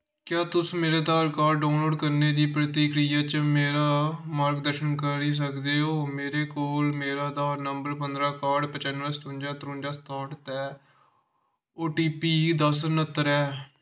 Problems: none marked